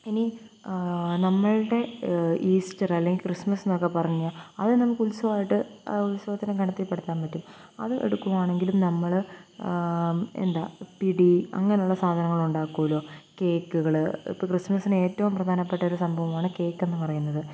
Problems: constant background noise, low volume